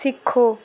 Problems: background sounds at intervals